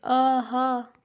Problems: constant background noise